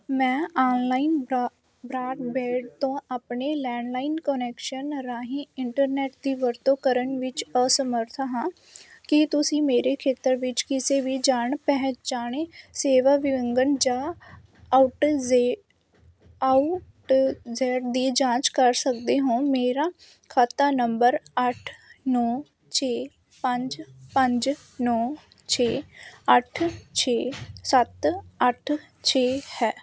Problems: constant background noise